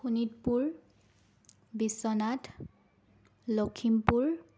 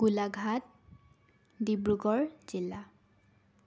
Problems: constant background noise